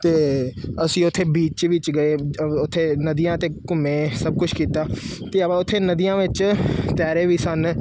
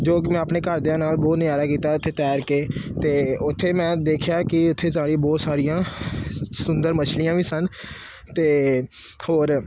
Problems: constant background noise